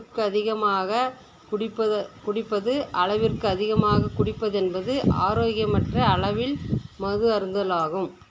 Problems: constant background noise